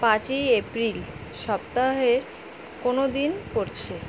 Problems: constant background noise